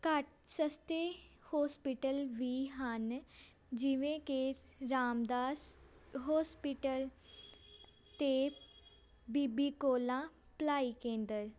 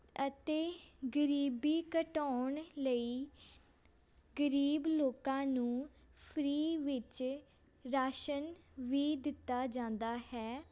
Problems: constant background noise, background conversations at intervals